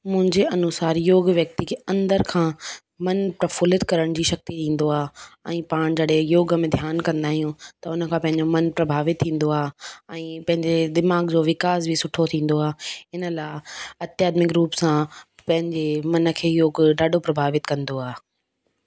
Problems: none marked